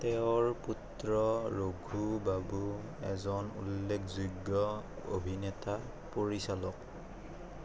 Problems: constant background noise